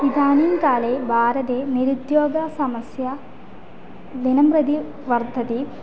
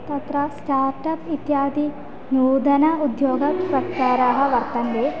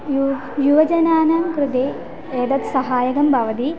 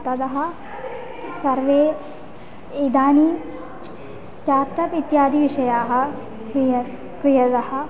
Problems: constant background noise, continuous background conversations